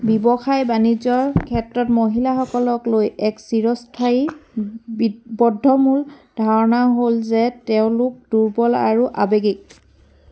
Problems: background sounds at intervals